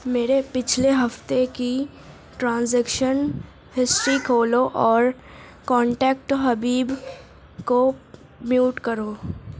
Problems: background conversations at intervals